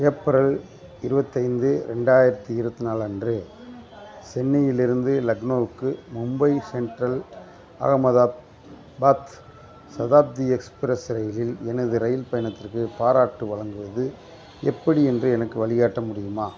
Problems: constant background noise, background conversations at intervals